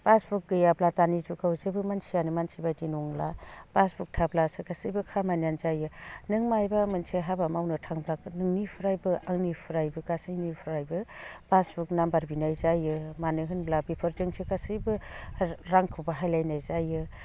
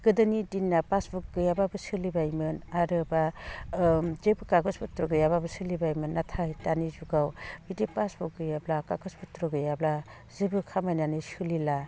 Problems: none marked